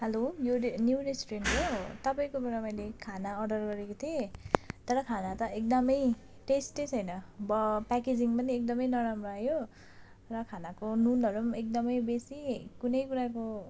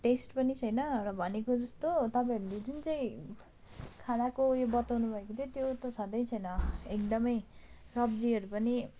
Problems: none marked